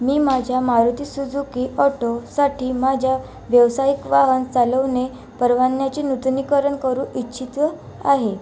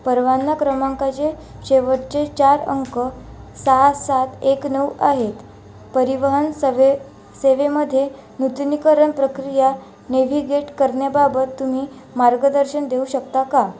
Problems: constant background noise